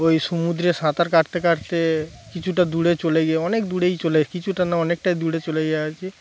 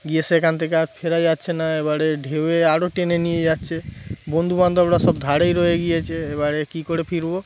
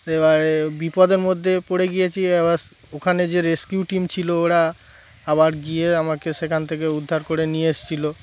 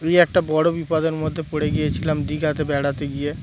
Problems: constant background noise, background conversations at intervals